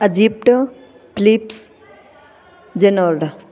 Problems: continuous background conversations